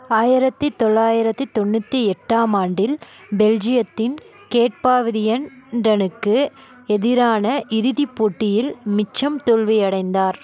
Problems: continuous background conversations